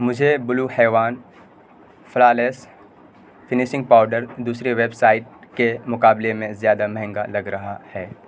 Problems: constant background noise